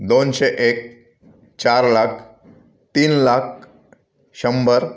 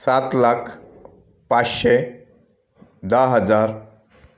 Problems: background sounds at intervals